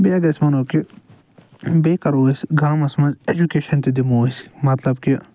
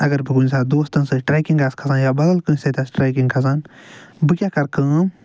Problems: none marked